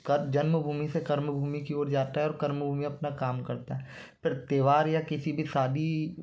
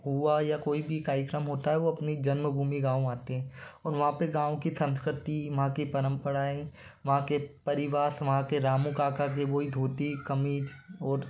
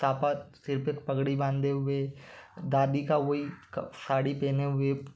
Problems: constant background noise